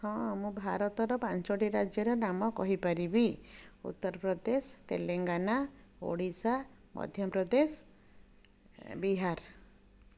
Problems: none marked